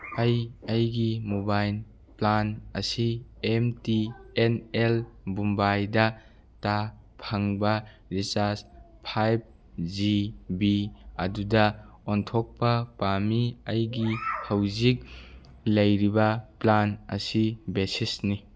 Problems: background conversations at intervals